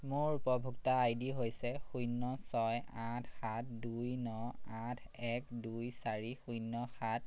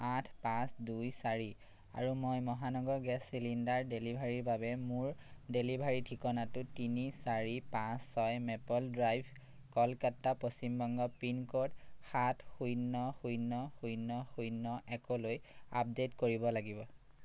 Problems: none marked